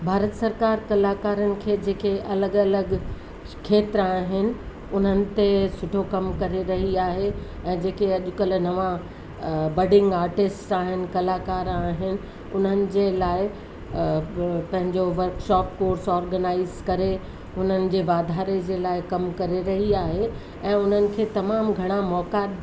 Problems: constant background noise